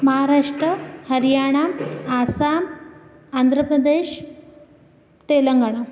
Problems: constant background noise